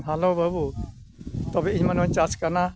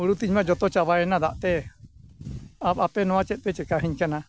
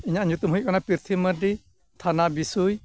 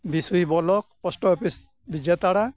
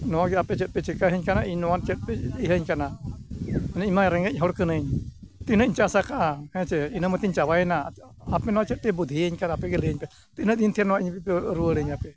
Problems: background sounds at intervals